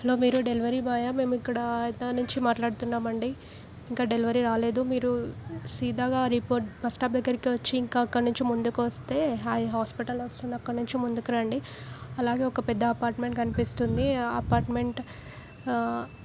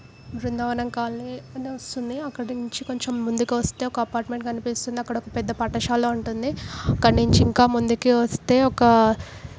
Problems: background sounds at intervals